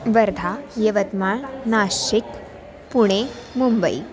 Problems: continuous background conversations